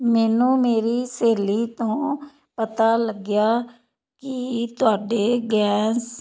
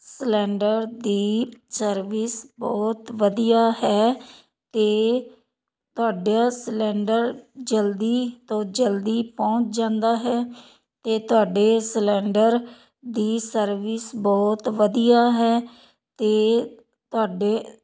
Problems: none marked